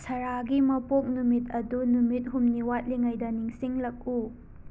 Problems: background sounds at intervals